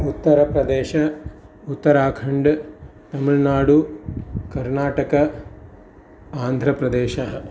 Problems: constant background noise